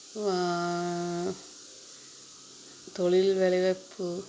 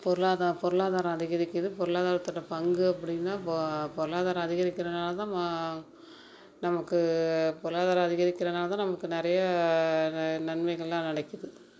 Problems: background sounds at intervals